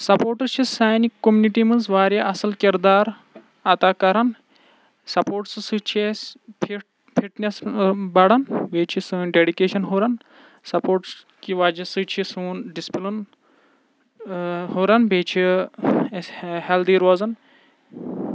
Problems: none marked